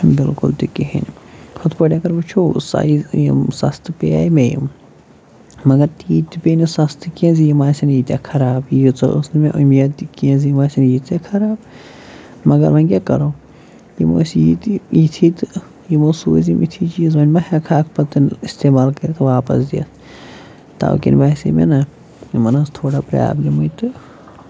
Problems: none marked